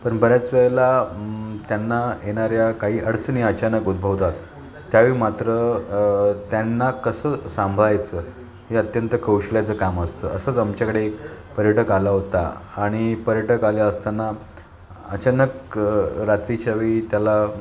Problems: constant background noise, continuous background conversations